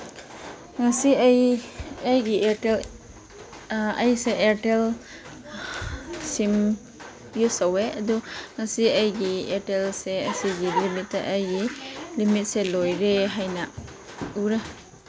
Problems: constant background noise